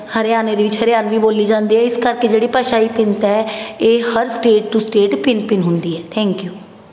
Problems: none marked